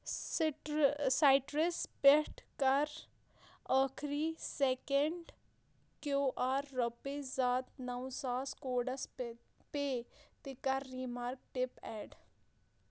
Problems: low volume